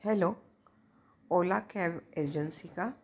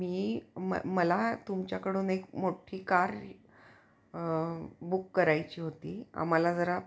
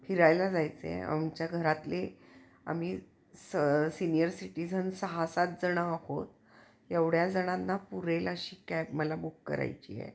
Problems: background sounds at intervals